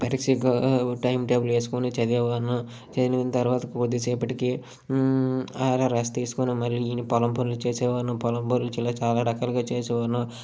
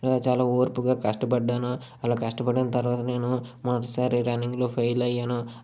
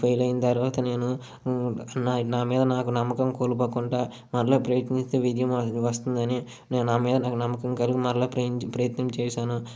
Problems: none marked